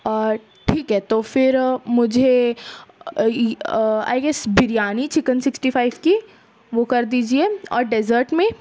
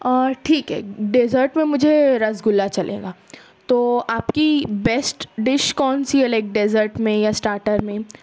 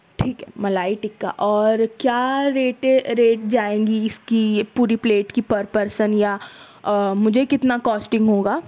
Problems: constant background noise